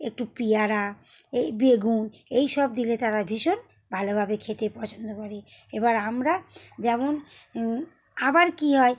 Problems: none marked